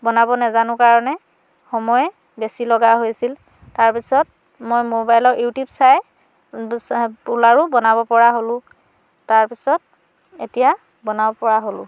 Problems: none marked